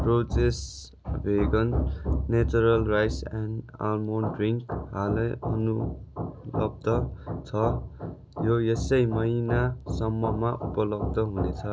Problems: constant background noise